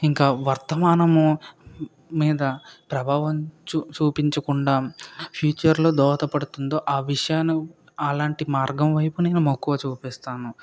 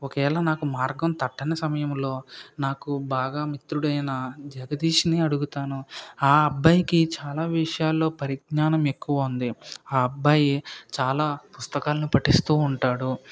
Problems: background sounds at intervals